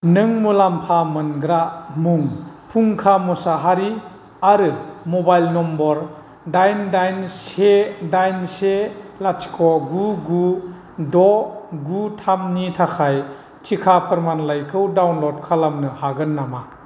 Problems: none marked